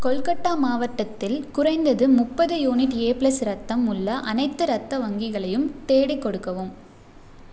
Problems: none marked